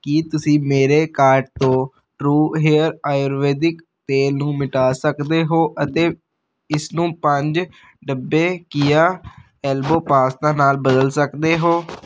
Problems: constant background noise